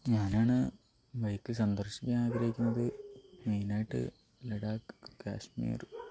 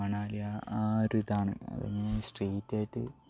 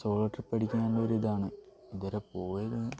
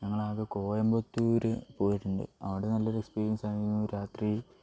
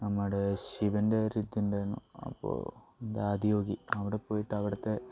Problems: low volume